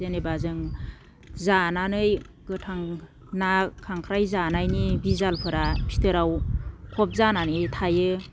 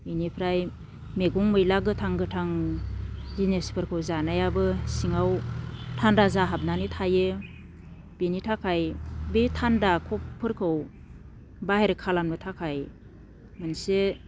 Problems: none marked